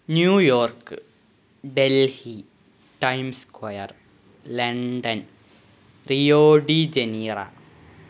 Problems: background sounds at intervals